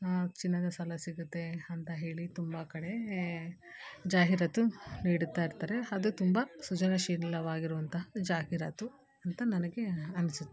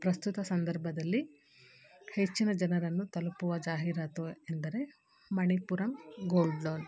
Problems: background sounds at intervals